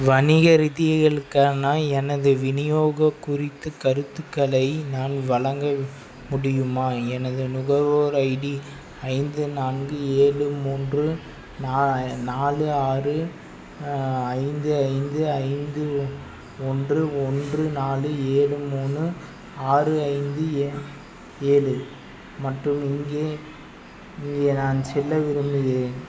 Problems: constant background noise